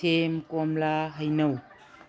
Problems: none marked